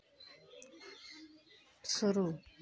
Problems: none marked